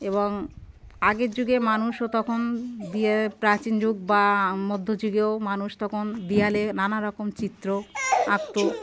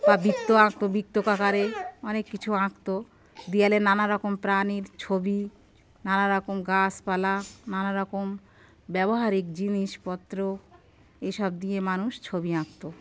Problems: none marked